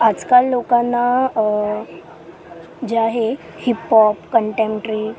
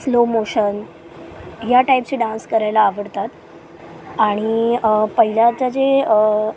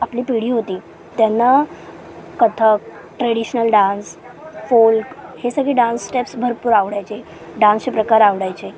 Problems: constant background noise, continuous background conversations, low volume